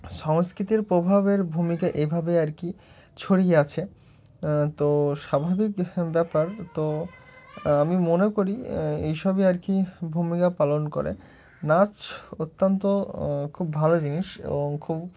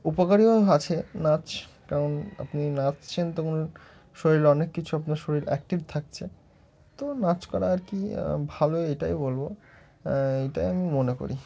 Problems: none marked